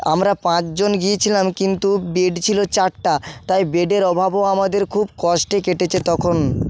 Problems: background sounds at intervals, background conversations at intervals